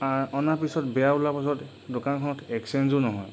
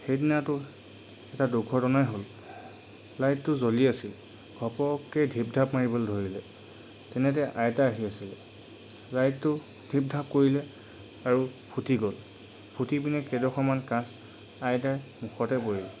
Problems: none marked